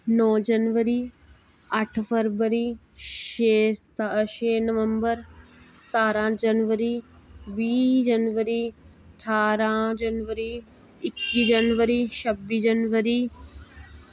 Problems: none marked